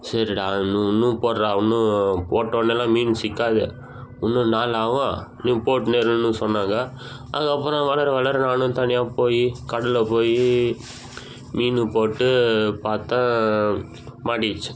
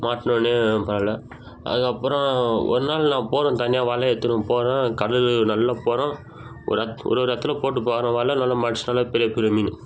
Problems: constant background noise